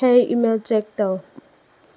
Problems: low volume